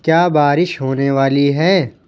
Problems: none marked